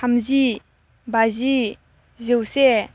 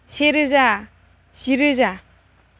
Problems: constant background noise